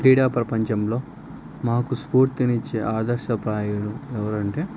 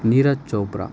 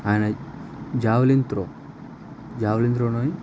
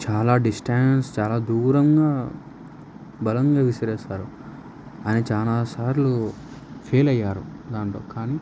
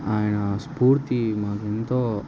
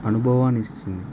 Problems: none marked